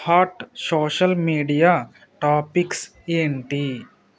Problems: constant background noise, background conversations at intervals